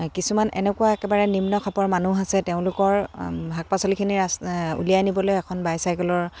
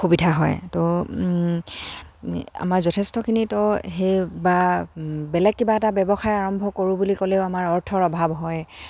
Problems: constant background noise, background conversations at intervals